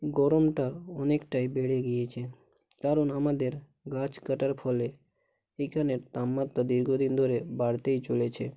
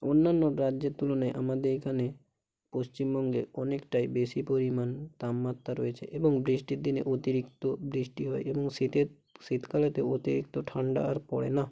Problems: constant background noise, low volume